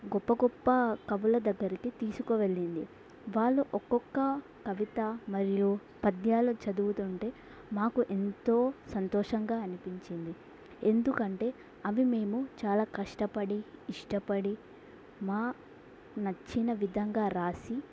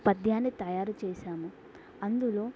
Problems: none marked